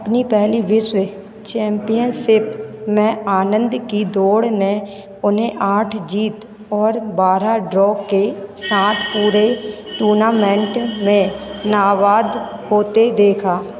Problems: constant background noise